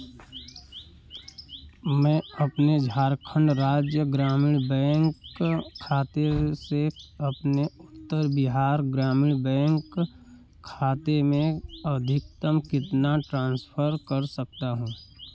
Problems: none marked